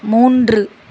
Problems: constant background noise